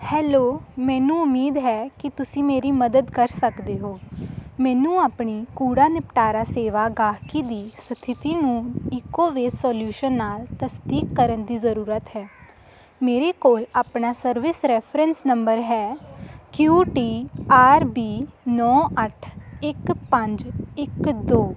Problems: none marked